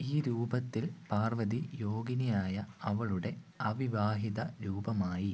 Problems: low volume